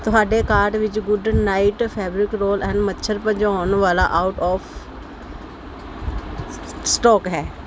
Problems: none marked